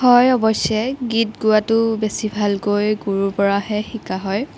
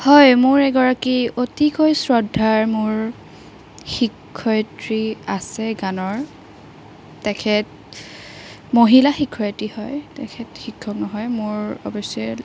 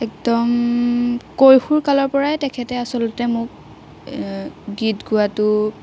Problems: constant background noise